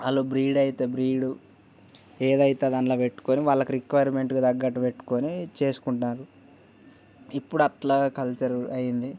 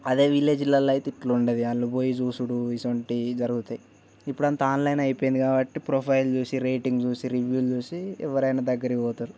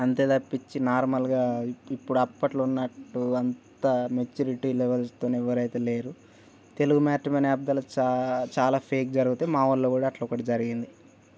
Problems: background sounds at intervals